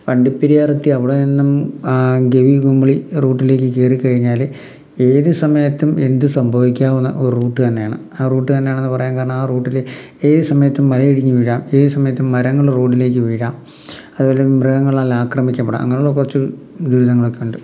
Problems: none marked